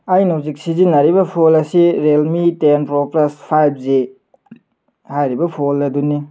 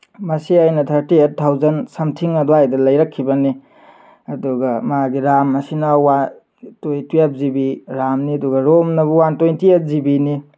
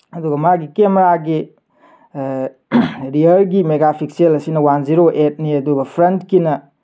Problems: none marked